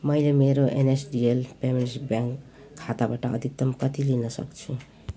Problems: background sounds at intervals